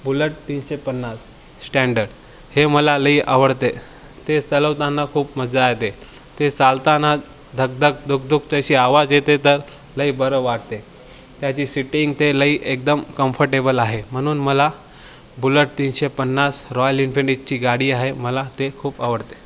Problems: none marked